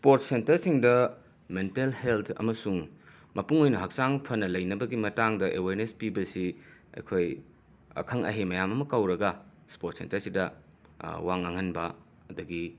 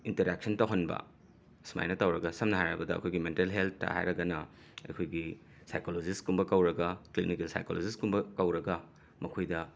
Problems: none marked